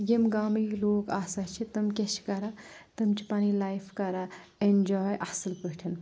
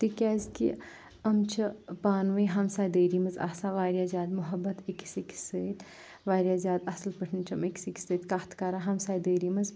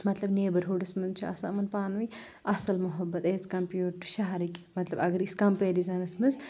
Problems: none marked